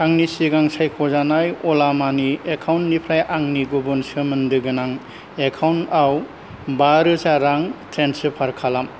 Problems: low volume